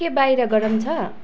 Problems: none marked